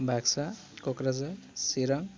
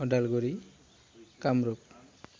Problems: none marked